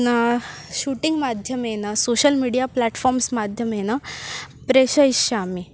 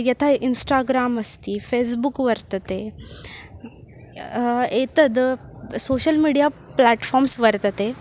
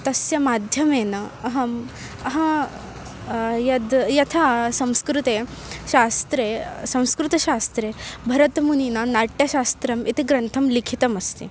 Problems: constant background noise, continuous background conversations